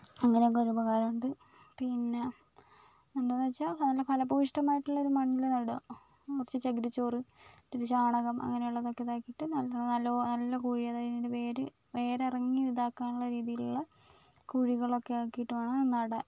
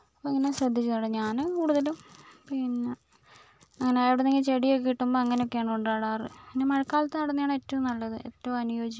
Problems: low volume